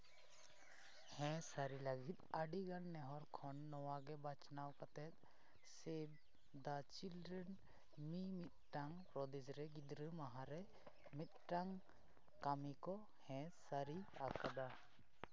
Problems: background sounds at intervals, low volume